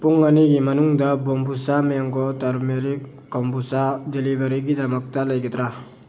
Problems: constant background noise